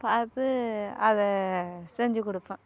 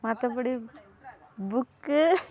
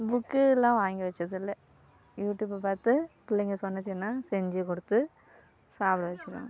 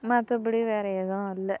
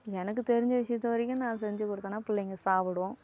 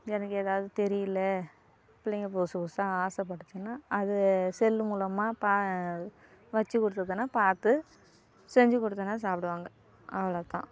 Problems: constant background noise